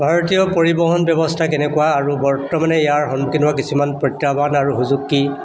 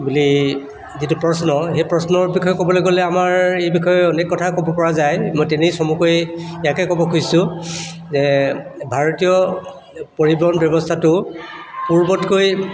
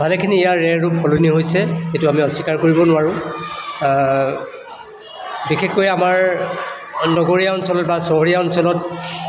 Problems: none marked